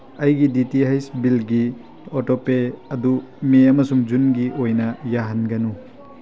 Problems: constant background noise